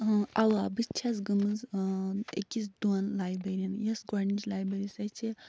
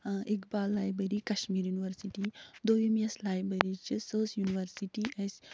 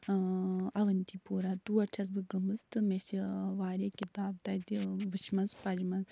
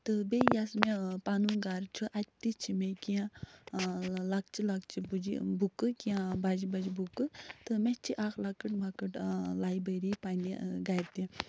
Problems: none marked